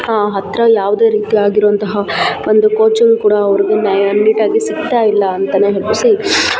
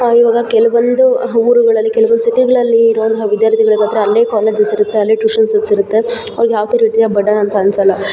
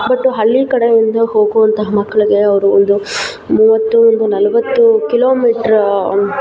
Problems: background sounds at intervals